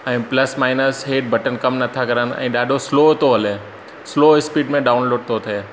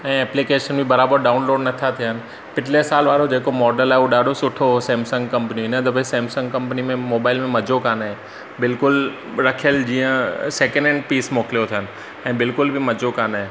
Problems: constant background noise